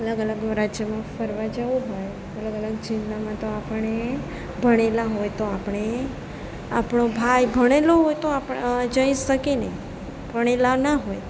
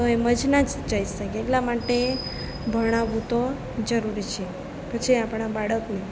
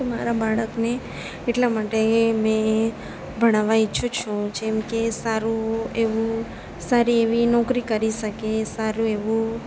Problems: none marked